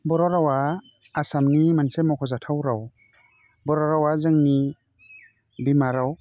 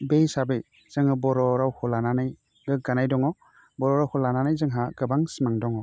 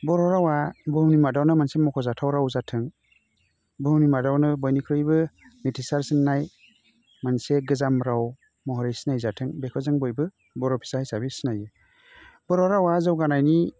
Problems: constant background noise